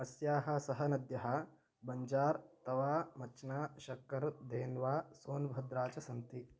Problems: low volume